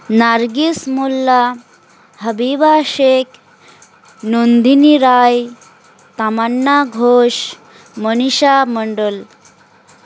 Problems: constant background noise, background conversations at intervals